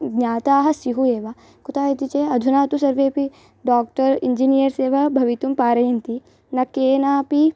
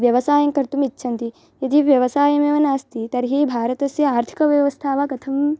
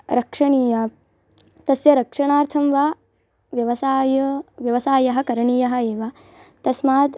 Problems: background sounds at intervals